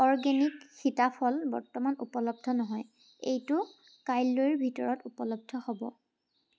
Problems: constant background noise